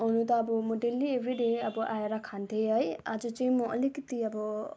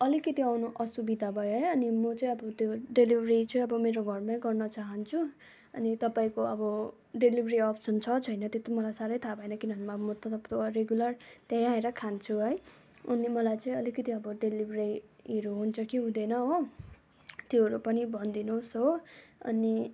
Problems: continuous background conversations